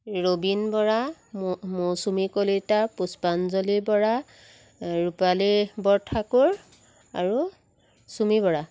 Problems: none marked